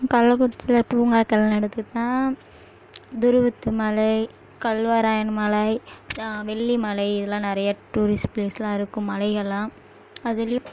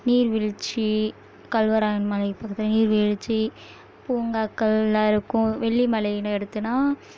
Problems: background sounds at intervals